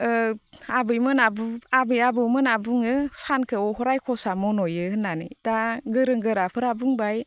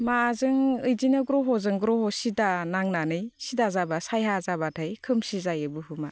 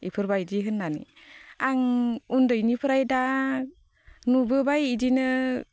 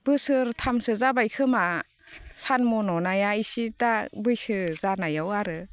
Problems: constant background noise